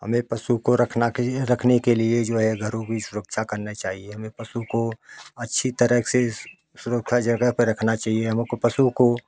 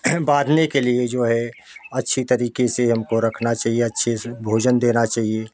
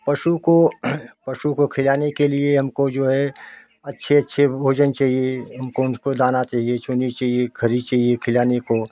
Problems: none marked